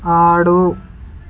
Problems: constant background noise